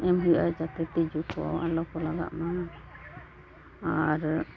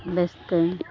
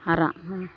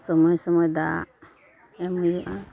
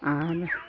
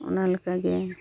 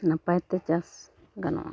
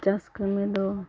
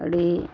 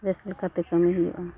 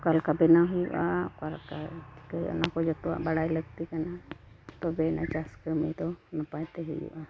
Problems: none marked